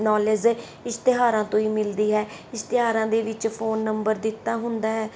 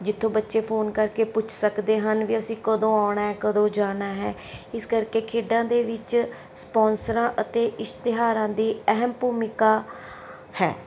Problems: none marked